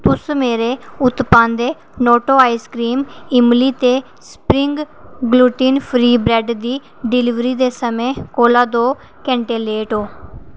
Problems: constant background noise